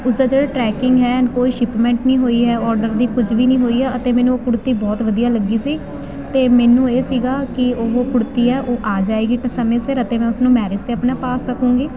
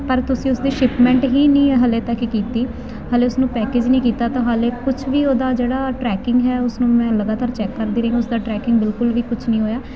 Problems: none marked